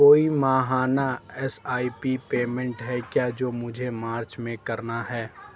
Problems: none marked